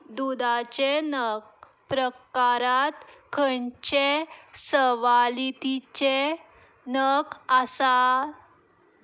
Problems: background sounds at intervals